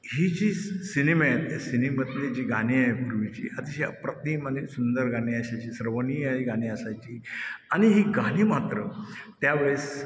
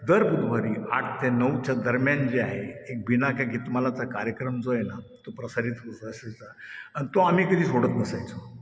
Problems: constant background noise, echo